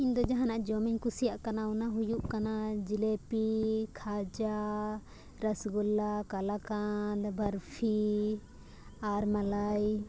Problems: constant background noise